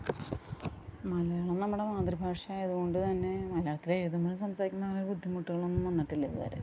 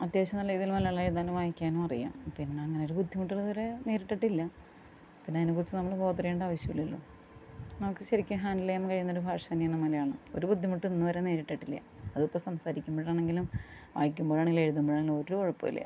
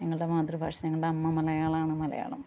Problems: low volume